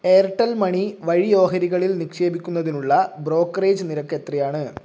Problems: none marked